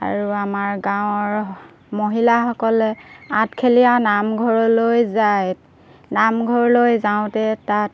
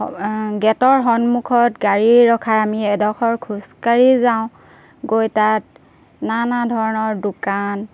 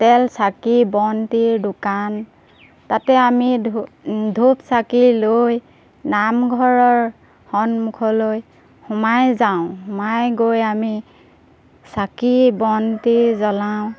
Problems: background sounds at intervals